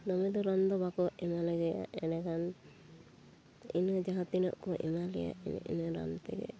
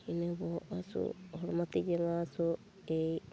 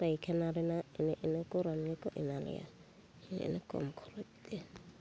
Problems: background sounds at intervals